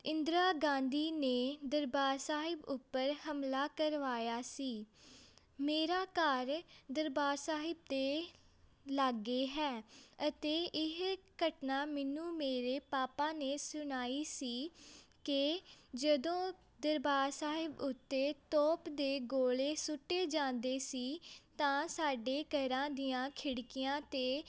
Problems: background sounds at intervals, background conversations at intervals